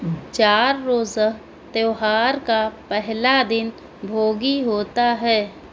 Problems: constant background noise